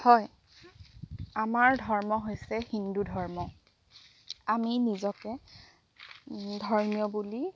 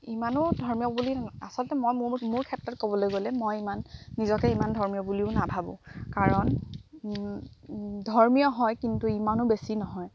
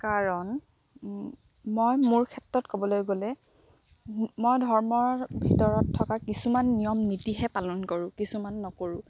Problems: background sounds at intervals